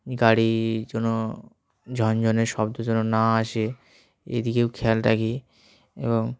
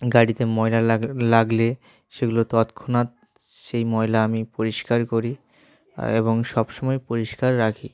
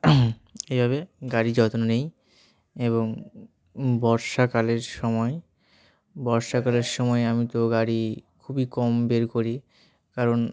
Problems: constant background noise, background conversations at intervals